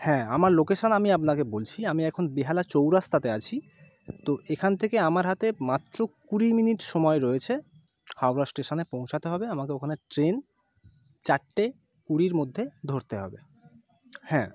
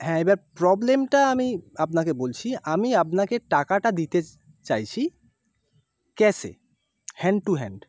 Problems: constant background noise